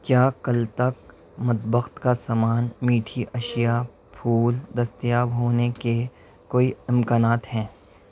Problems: none marked